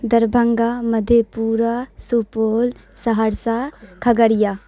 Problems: none marked